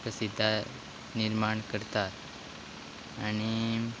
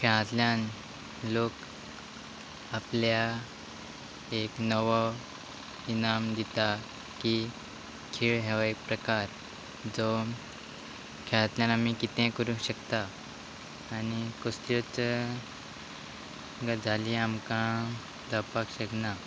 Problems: constant background noise